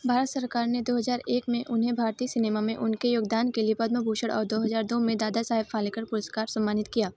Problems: constant background noise, background conversations at intervals